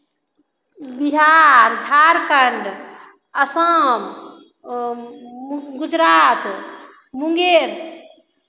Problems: none marked